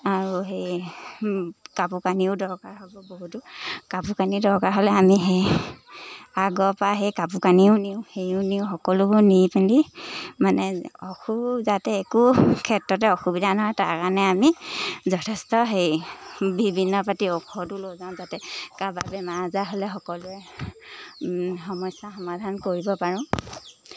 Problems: constant background noise